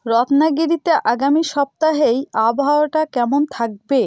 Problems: none marked